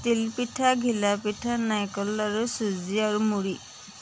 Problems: constant background noise